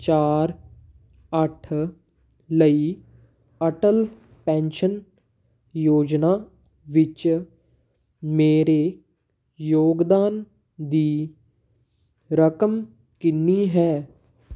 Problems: background sounds at intervals